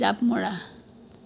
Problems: constant background noise